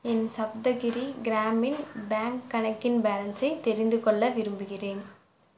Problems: background sounds at intervals